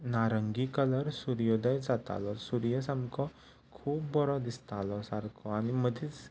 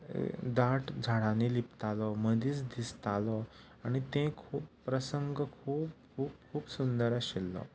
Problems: background sounds at intervals